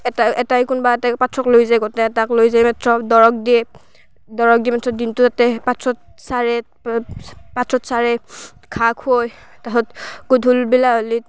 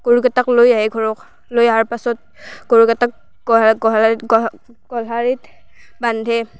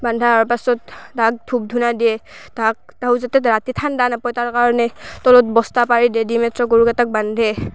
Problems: background sounds at intervals, background conversations at intervals